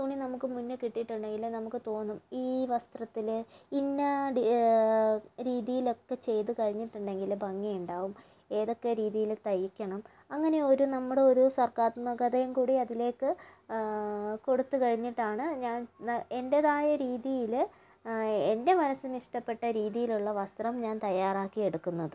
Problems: low volume